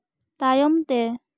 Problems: none marked